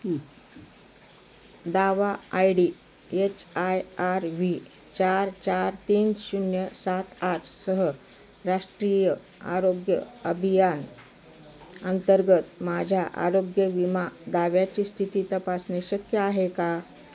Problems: constant background noise, continuous background conversations